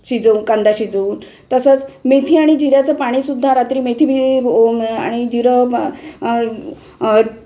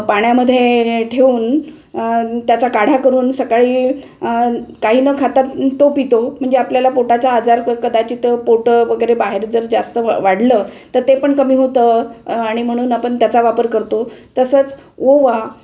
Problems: constant background noise